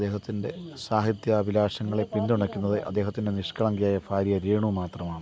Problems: constant background noise, low volume